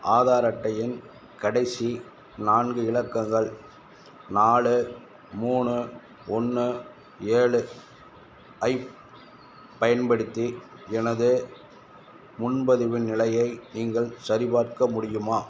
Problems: constant background noise